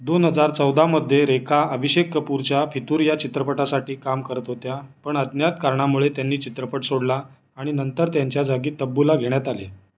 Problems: none marked